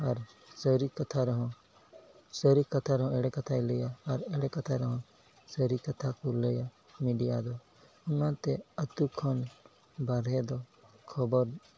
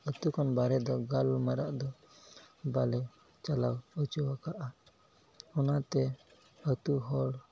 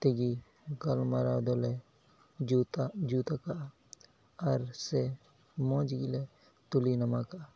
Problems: background sounds at intervals, low volume